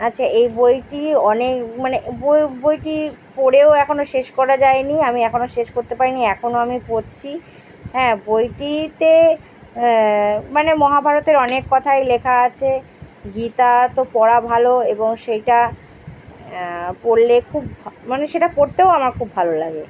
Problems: constant background noise